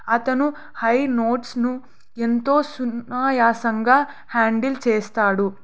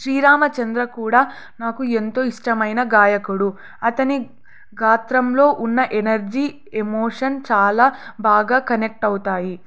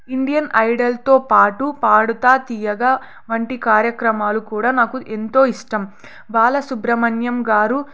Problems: none marked